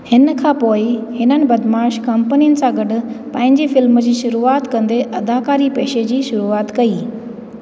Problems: constant background noise, echo